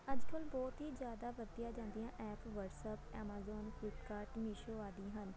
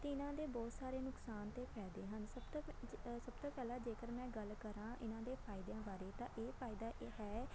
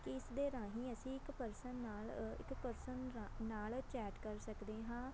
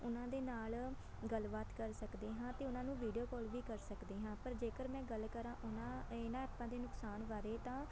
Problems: none marked